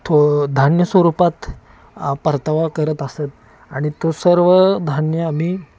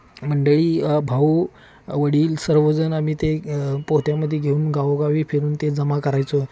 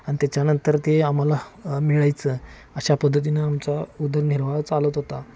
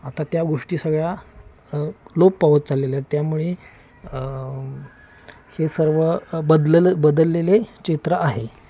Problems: constant background noise, continuous background conversations